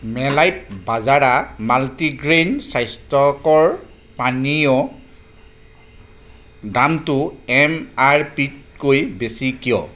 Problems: background sounds at intervals